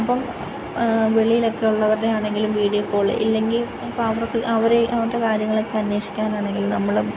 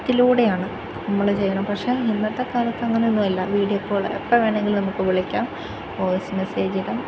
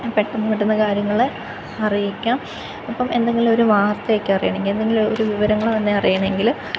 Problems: constant background noise